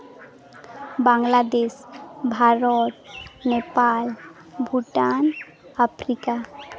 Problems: constant background noise, background conversations at intervals